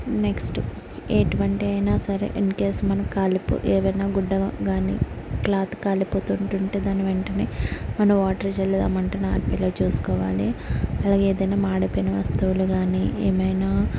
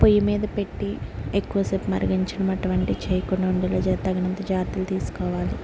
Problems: constant background noise